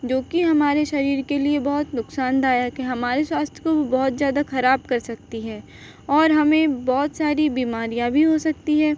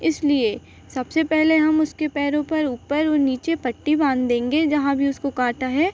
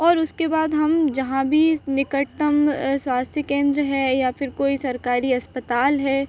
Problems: constant background noise